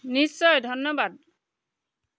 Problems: background sounds at intervals